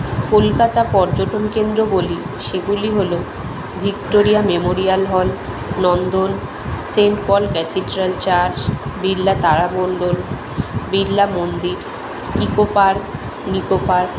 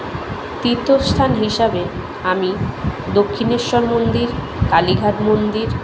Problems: constant background noise, background conversations at intervals